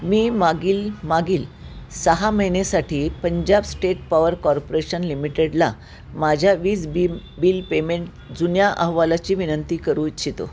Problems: none marked